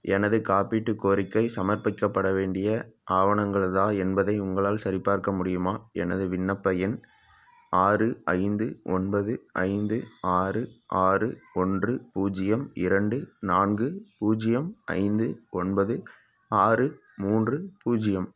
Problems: none marked